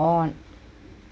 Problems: none marked